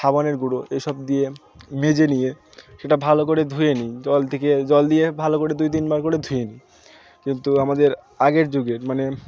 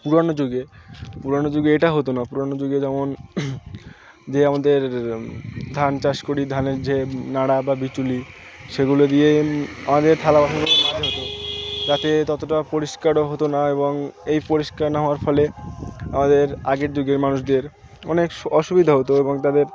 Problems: constant background noise, continuous background conversations